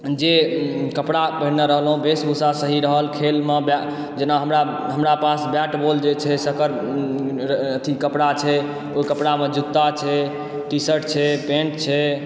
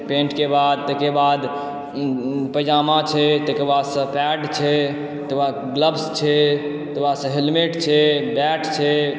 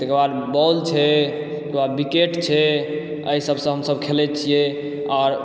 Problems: echo